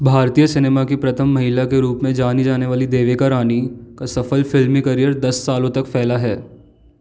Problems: constant background noise